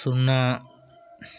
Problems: none marked